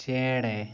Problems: background sounds at intervals